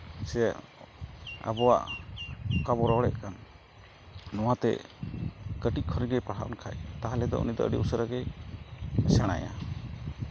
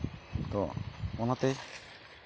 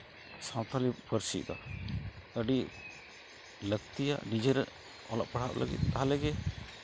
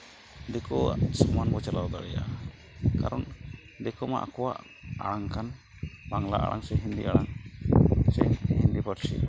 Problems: constant background noise